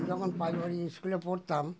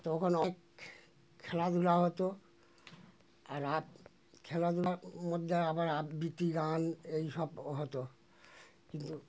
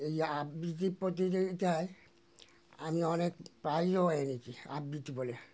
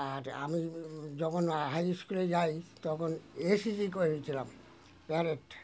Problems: none marked